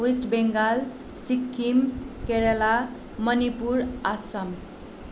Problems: none marked